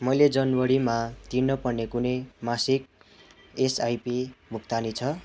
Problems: constant background noise, continuous background conversations